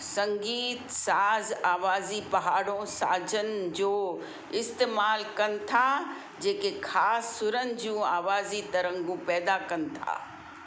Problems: constant background noise, low volume